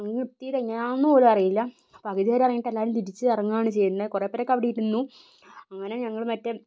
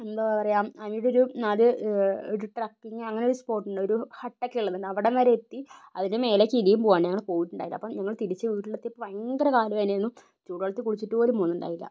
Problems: low volume